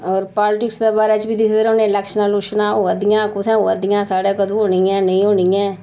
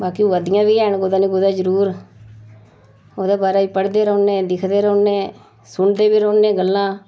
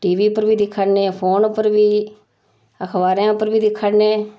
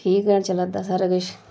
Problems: none marked